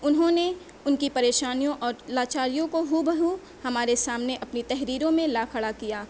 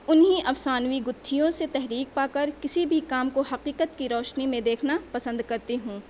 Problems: none marked